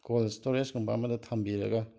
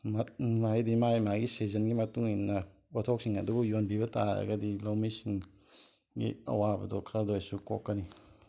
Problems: background sounds at intervals